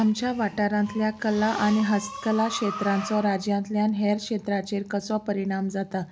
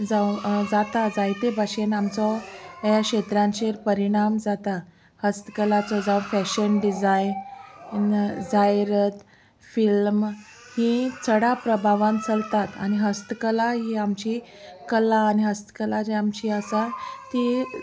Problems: constant background noise